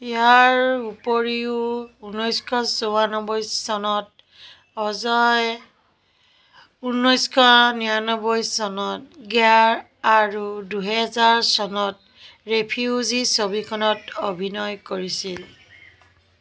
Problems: constant background noise